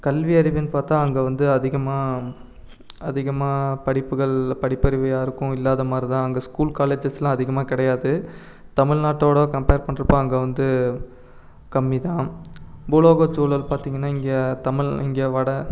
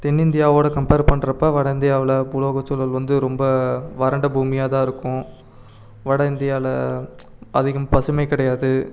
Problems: none marked